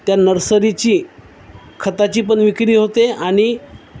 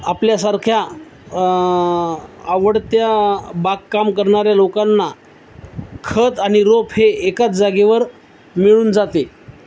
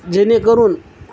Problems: none marked